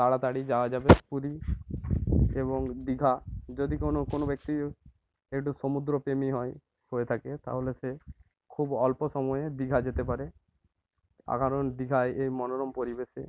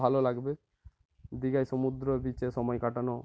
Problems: constant background noise